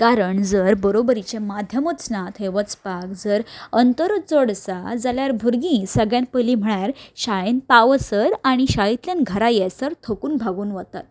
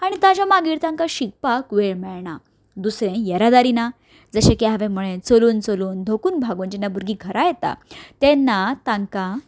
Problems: background sounds at intervals